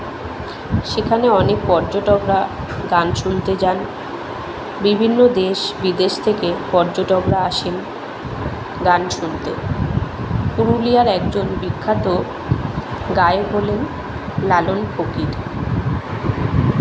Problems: none marked